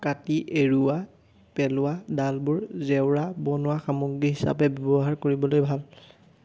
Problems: none marked